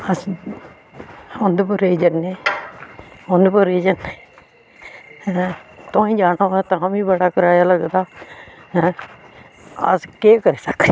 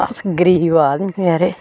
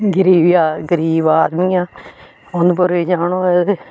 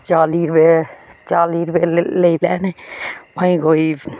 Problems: background sounds at intervals